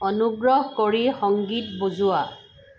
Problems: constant background noise